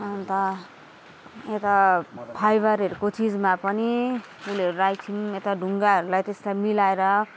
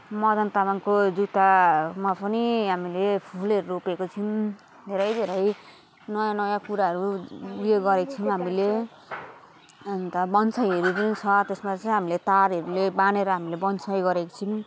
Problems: constant background noise